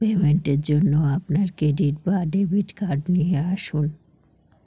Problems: background sounds at intervals